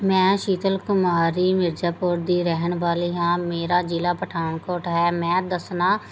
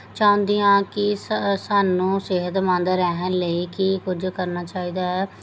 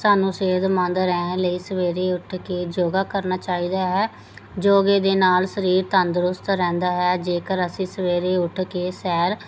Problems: none marked